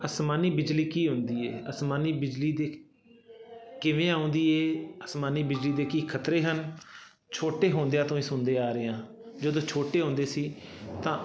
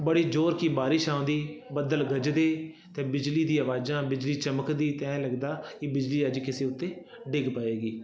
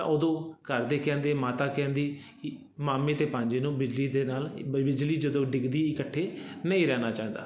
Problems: none marked